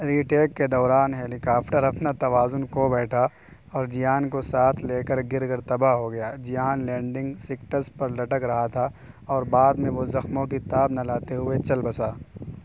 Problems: constant background noise